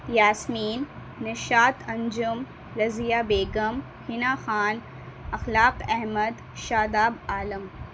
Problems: constant background noise